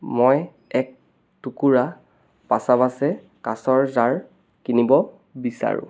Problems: background sounds at intervals